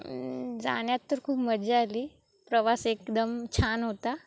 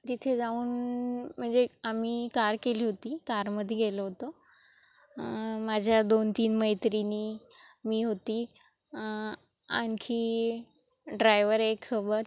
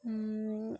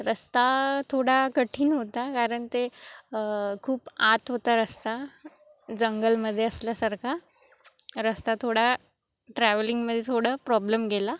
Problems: constant background noise